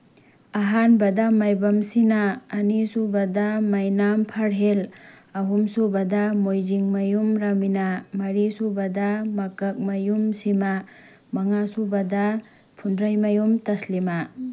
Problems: background sounds at intervals